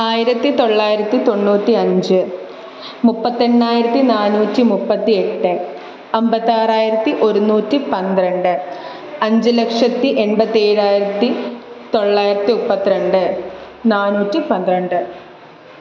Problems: none marked